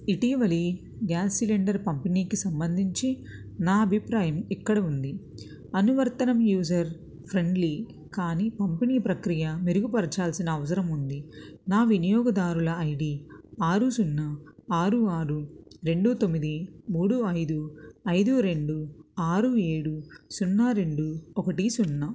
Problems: none marked